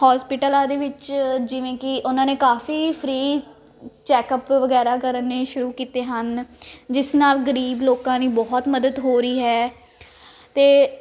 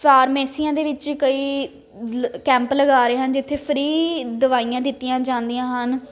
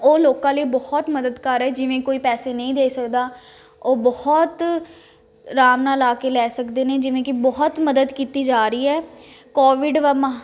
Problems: constant background noise